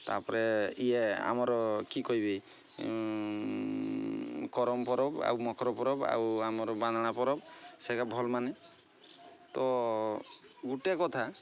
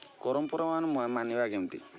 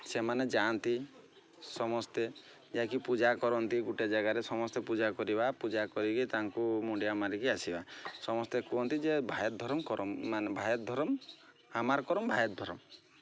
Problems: constant background noise